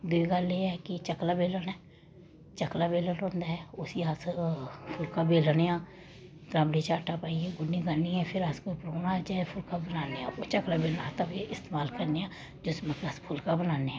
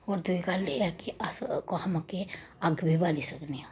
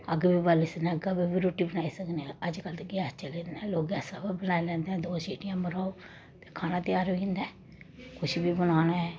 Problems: constant background noise